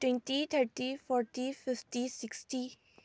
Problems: low volume